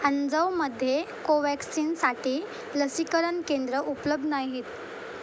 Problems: constant background noise